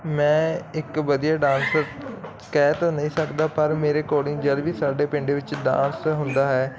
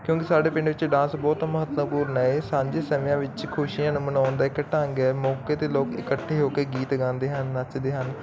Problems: constant background noise, continuous background conversations